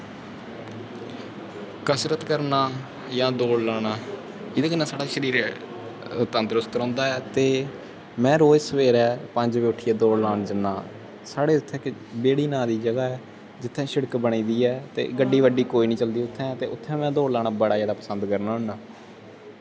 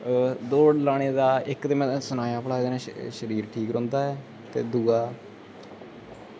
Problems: constant background noise